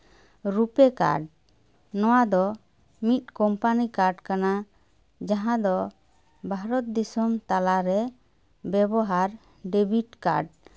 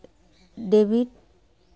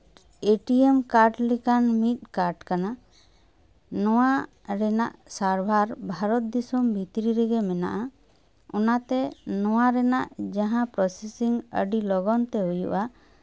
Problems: background sounds at intervals